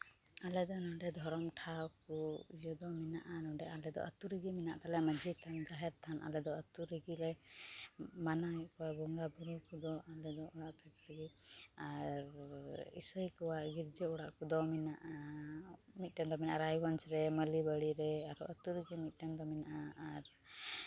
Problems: constant background noise, low volume